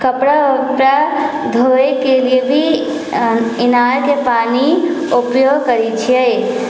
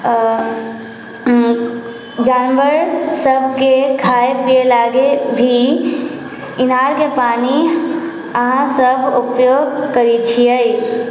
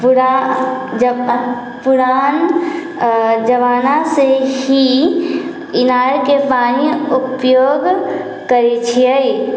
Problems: background conversations at intervals